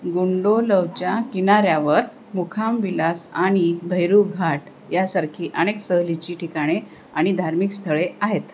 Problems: constant background noise